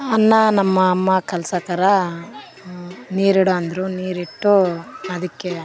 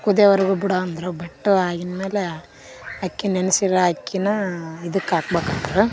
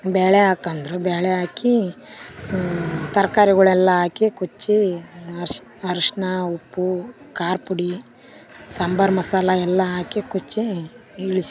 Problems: none marked